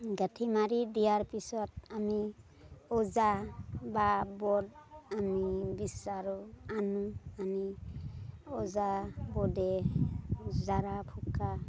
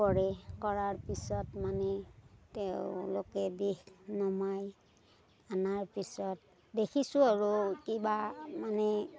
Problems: none marked